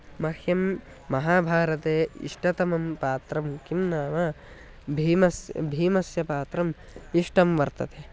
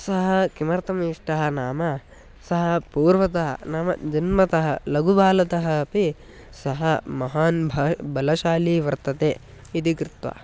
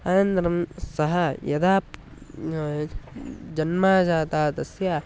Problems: none marked